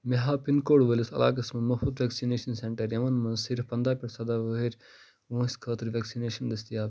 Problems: none marked